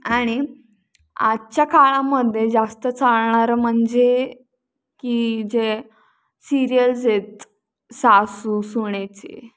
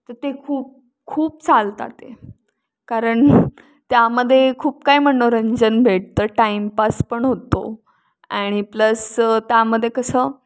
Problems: none marked